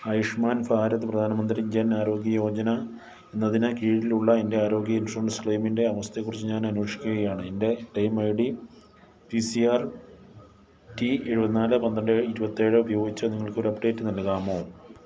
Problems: none marked